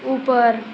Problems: none marked